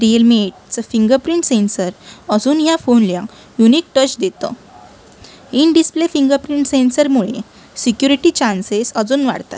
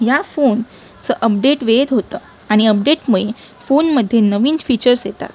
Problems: constant background noise, continuous background conversations